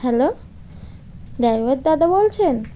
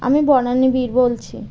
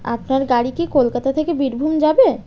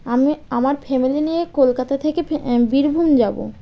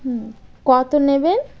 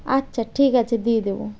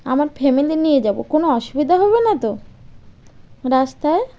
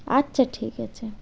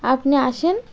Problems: constant background noise